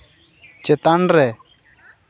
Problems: none marked